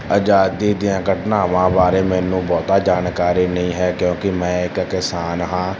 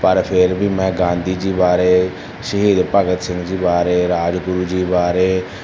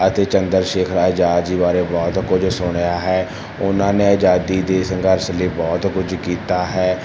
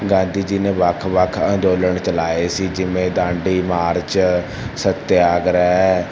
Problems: constant background noise